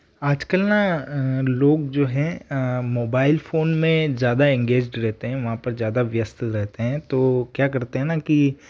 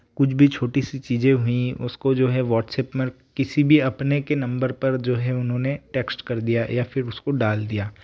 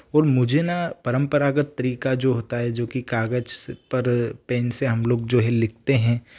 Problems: background sounds at intervals